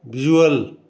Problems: none marked